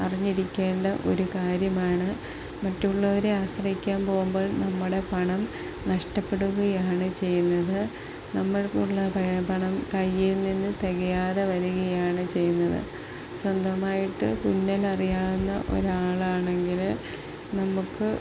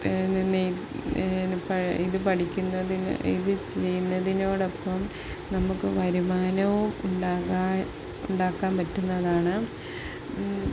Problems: none marked